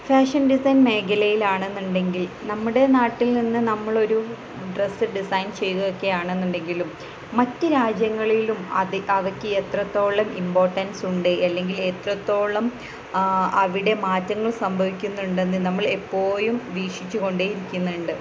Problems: constant background noise, low volume